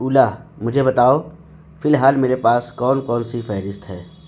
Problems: constant background noise